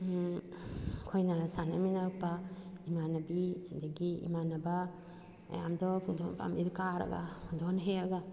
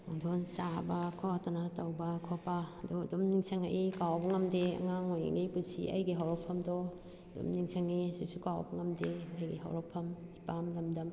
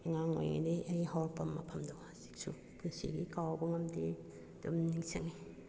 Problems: background sounds at intervals